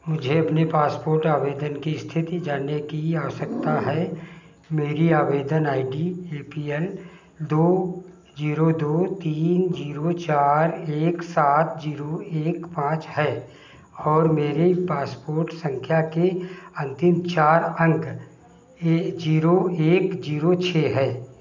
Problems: background sounds at intervals, echo